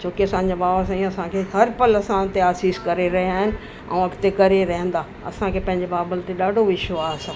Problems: constant background noise, echo